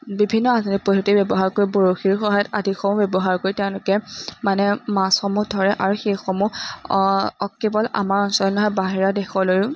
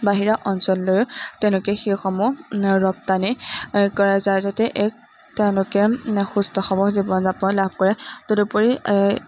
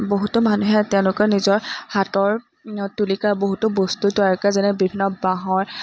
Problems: none marked